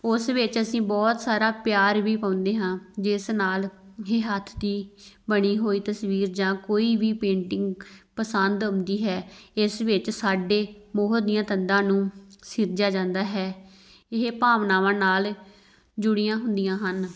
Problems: background sounds at intervals